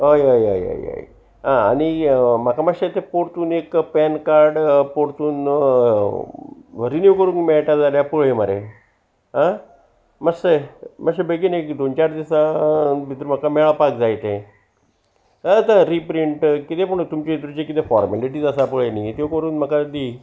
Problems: constant background noise